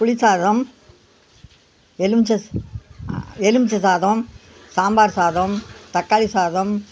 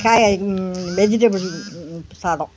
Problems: background sounds at intervals